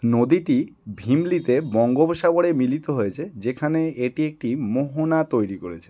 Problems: constant background noise